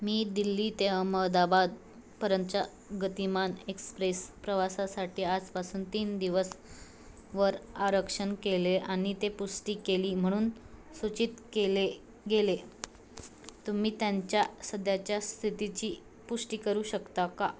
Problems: constant background noise